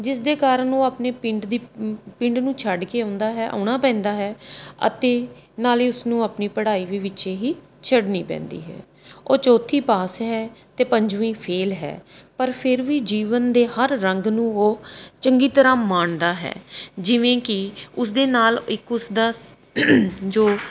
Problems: background sounds at intervals